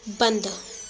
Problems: constant background noise